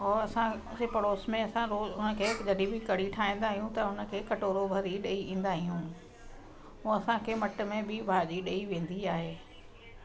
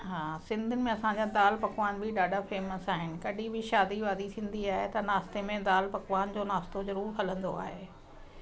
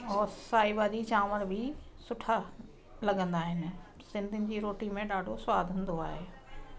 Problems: constant background noise